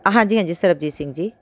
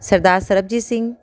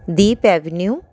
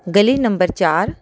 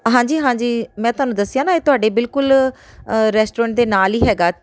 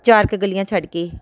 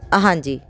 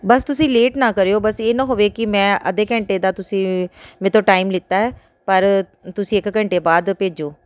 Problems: background sounds at intervals